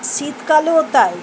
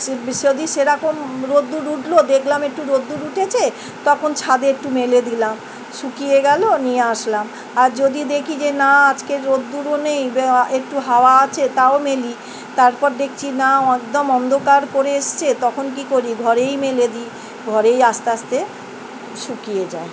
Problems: none marked